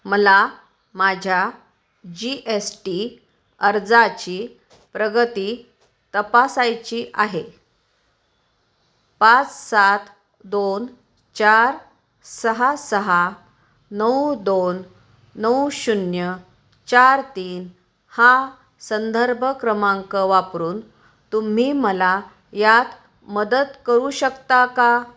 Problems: none marked